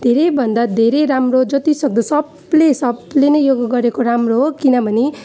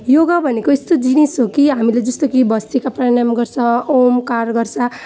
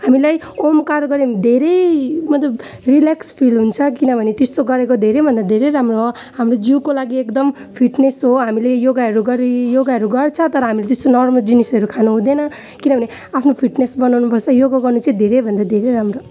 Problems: none marked